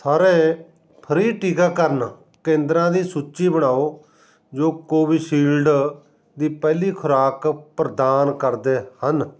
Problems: none marked